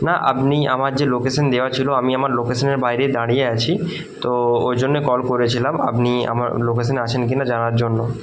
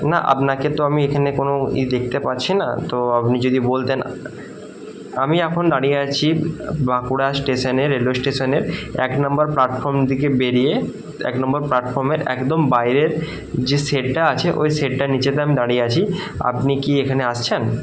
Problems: none marked